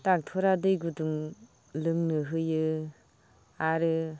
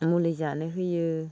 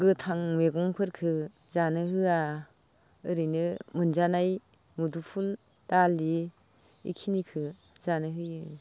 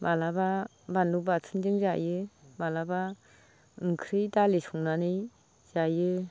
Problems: background conversations at intervals, low volume